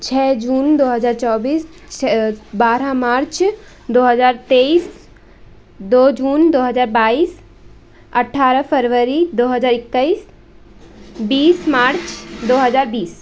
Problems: constant background noise